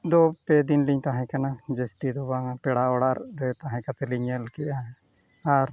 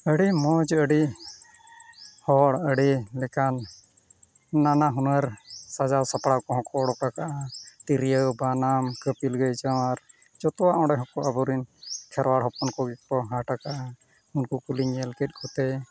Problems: background sounds at intervals